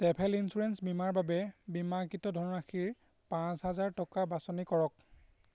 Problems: constant background noise